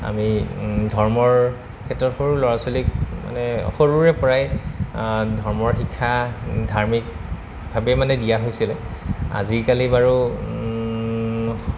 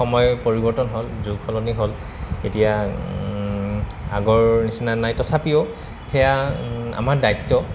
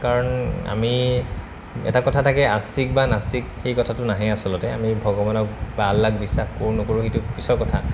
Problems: constant background noise